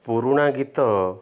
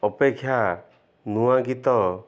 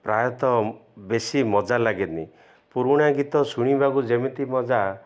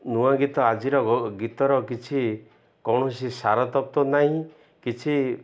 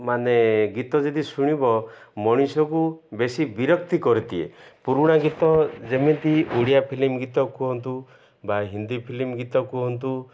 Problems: none marked